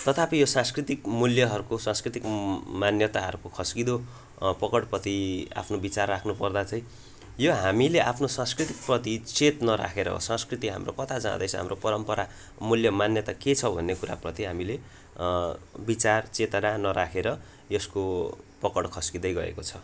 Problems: background sounds at intervals